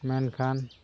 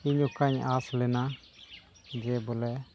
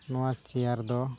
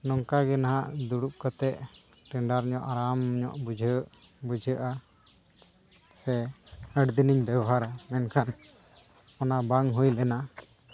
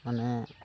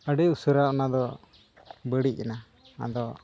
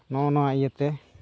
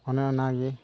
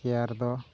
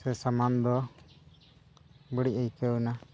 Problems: none marked